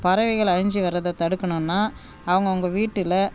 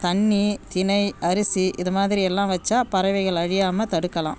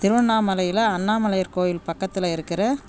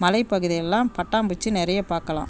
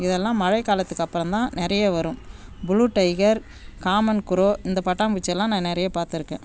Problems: none marked